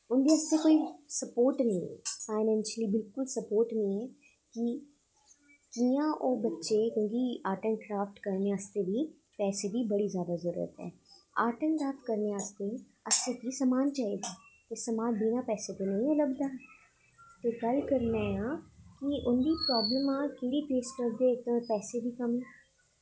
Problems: echo, low volume